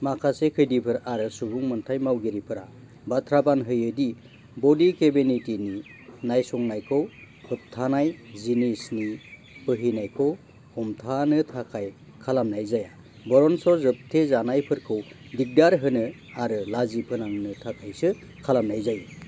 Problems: constant background noise